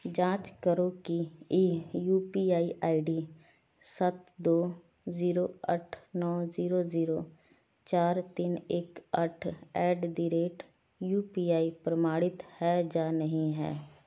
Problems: none marked